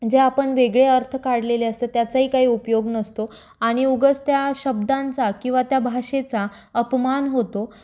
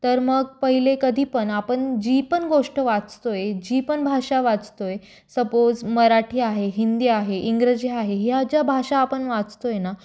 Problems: constant background noise, echo